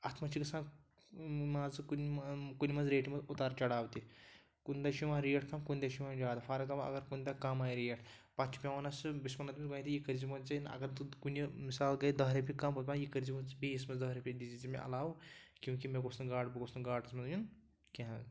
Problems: background sounds at intervals